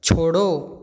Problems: background sounds at intervals